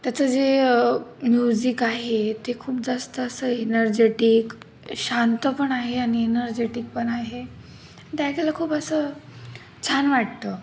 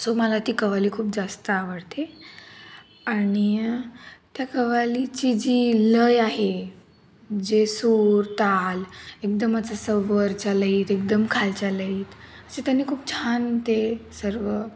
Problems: none marked